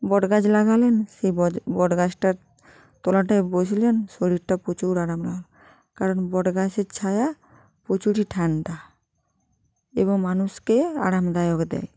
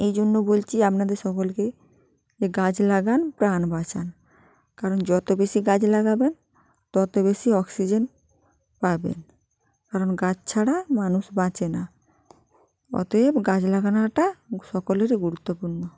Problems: background sounds at intervals